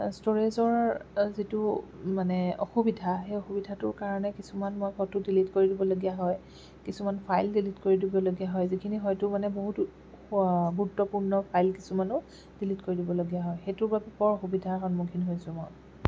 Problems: none marked